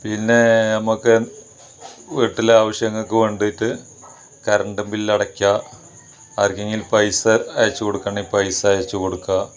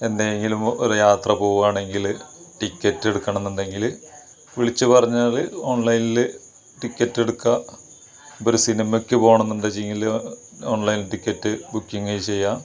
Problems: background sounds at intervals